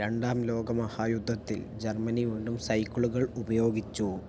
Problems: low volume